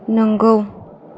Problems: none marked